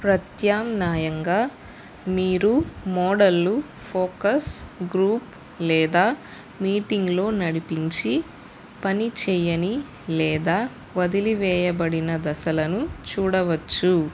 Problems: constant background noise